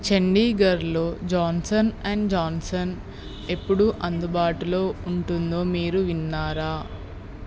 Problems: constant background noise